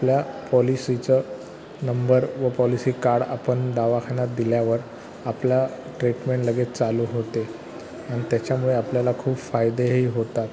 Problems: constant background noise, background conversations at intervals